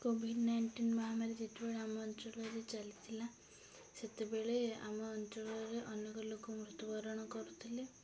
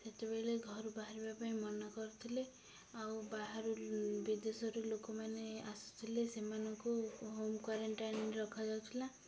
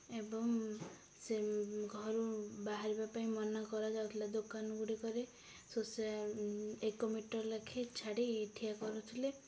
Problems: low volume